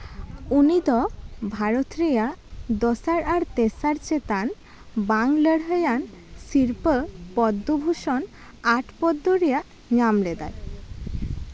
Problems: none marked